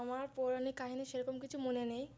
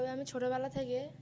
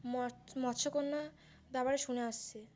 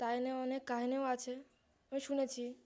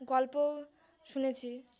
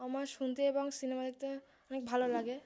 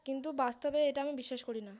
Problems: low volume